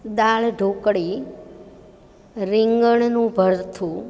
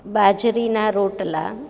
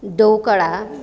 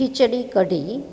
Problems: none marked